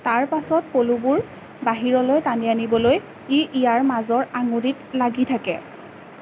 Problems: constant background noise